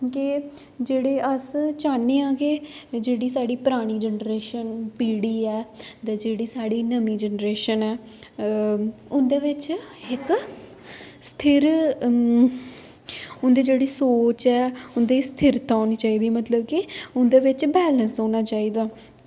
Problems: none marked